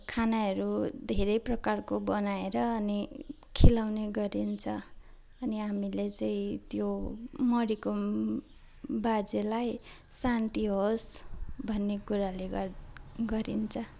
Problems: background sounds at intervals